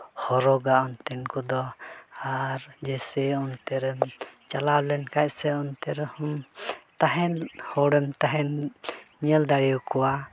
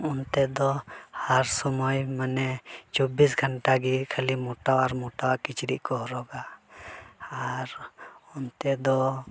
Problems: constant background noise, background conversations at intervals